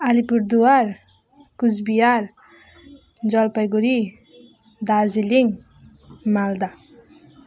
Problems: none marked